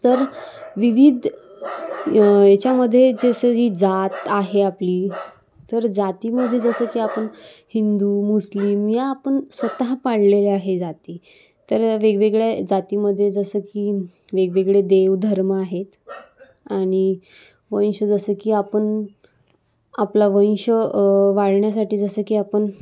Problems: constant background noise